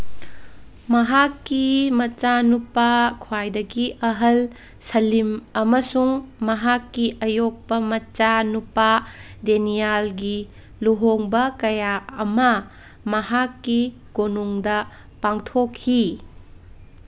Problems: none marked